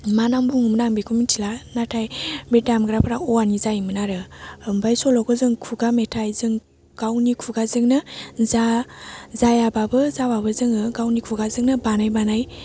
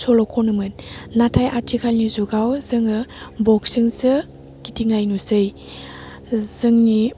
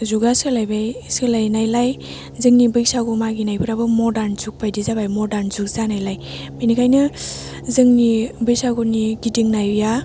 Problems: low volume